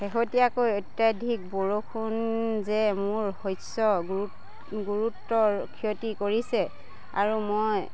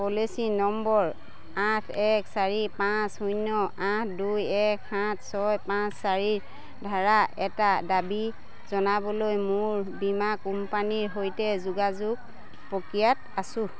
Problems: constant background noise, continuous background conversations